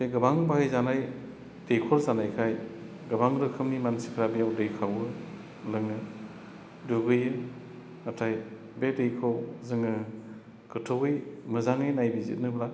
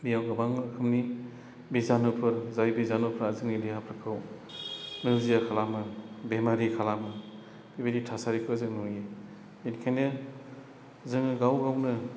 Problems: constant background noise